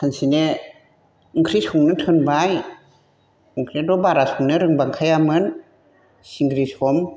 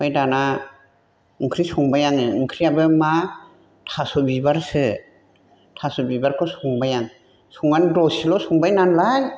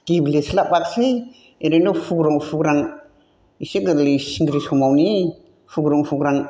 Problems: constant background noise